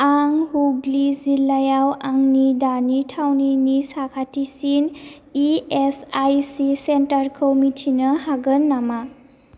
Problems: none marked